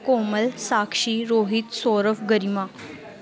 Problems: constant background noise